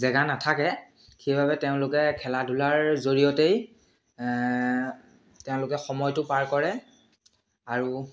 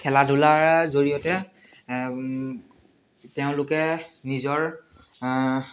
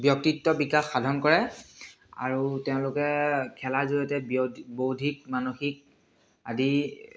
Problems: constant background noise, background conversations at intervals, echo